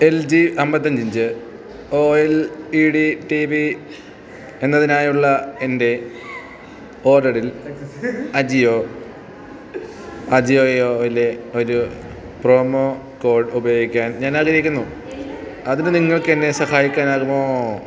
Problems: background sounds at intervals